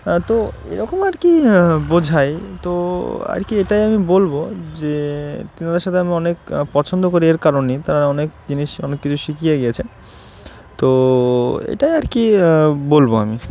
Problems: none marked